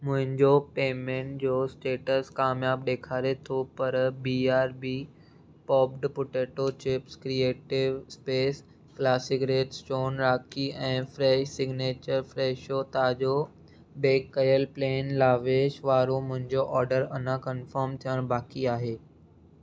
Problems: none marked